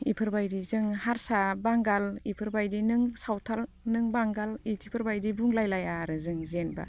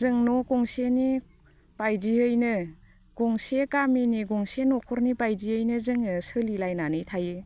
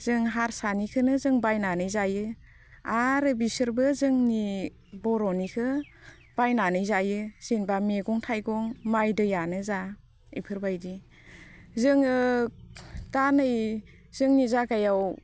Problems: constant background noise